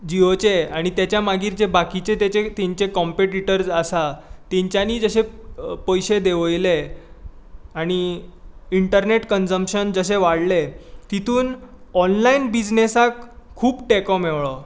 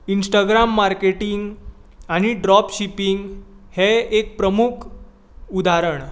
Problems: constant background noise